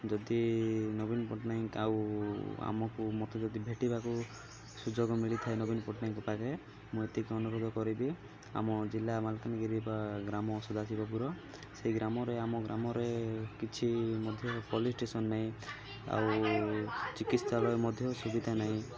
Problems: constant background noise, continuous background conversations